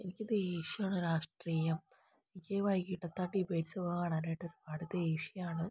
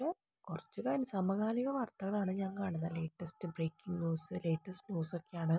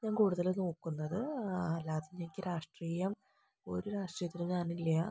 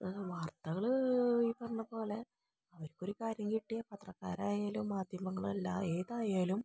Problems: low volume